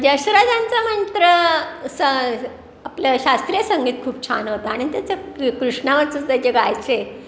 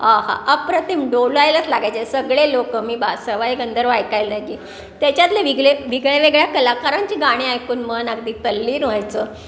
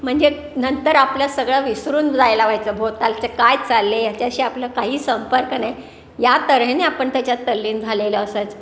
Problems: constant background noise, background conversations at intervals